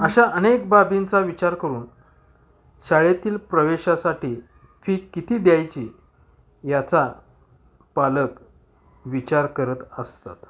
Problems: background sounds at intervals, background conversations at intervals